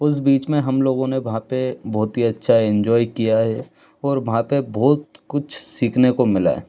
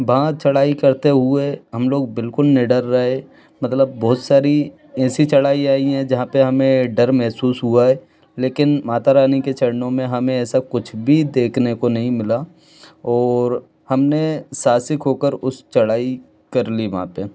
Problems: background sounds at intervals